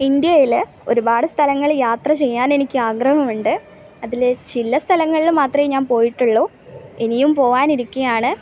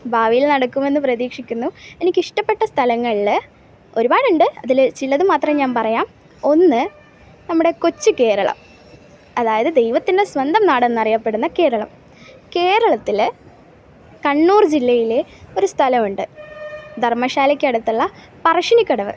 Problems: background sounds at intervals